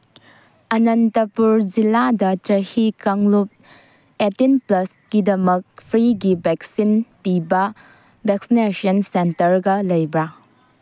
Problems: background sounds at intervals